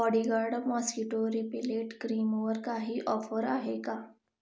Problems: background sounds at intervals